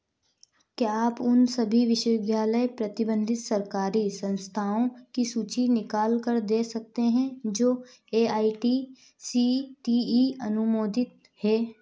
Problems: none marked